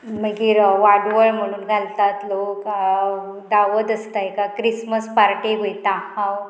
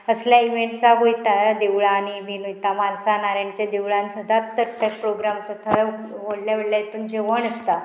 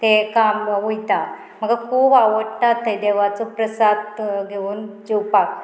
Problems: constant background noise